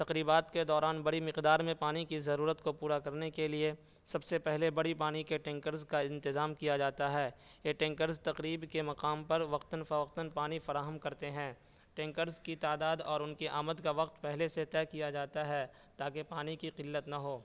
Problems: background sounds at intervals, low volume